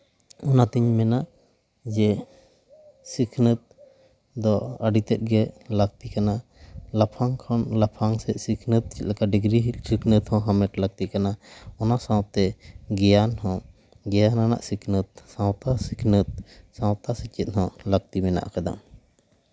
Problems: none marked